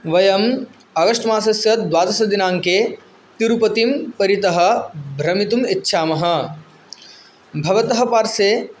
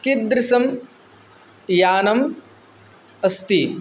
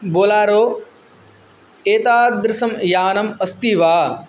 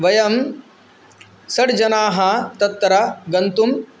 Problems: none marked